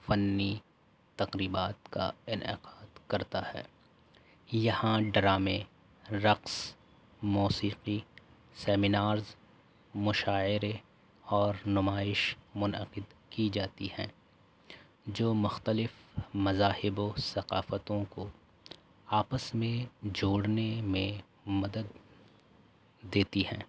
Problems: constant background noise